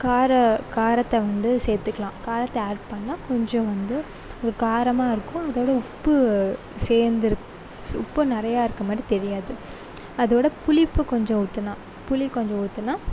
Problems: none marked